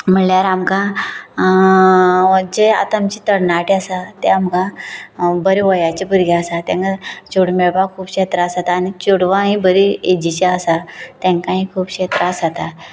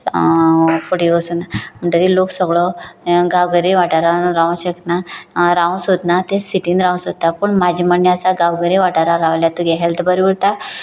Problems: constant background noise